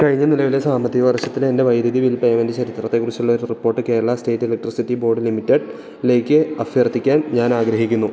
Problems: none marked